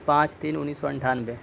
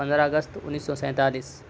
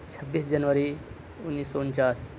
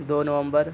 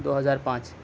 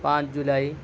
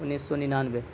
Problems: constant background noise